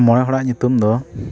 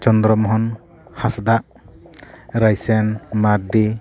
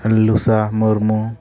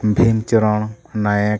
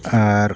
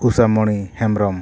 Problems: continuous background conversations